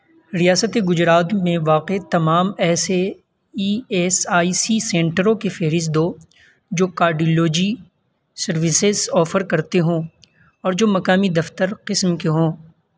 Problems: constant background noise